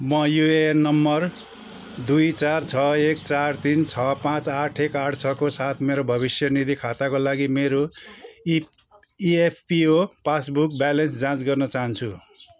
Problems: background sounds at intervals